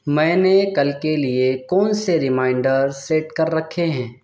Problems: background sounds at intervals